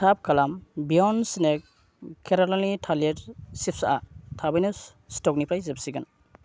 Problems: constant background noise